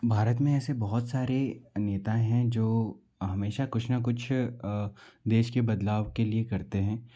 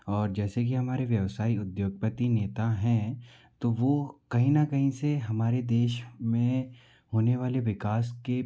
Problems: background sounds at intervals